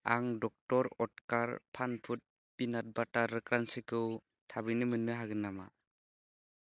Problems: low volume